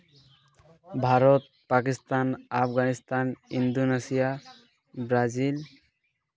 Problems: none marked